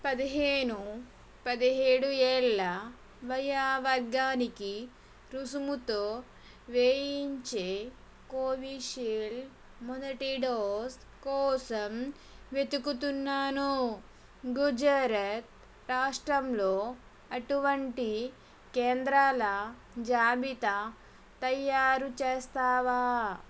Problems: constant background noise